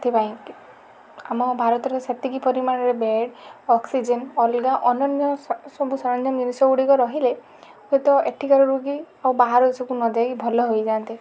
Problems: constant background noise